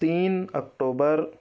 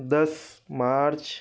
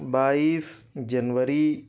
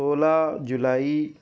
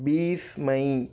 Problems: none marked